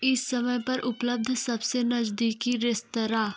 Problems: constant background noise